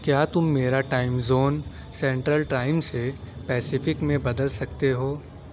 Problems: none marked